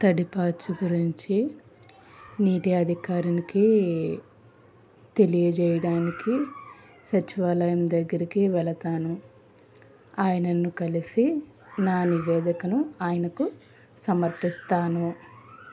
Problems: constant background noise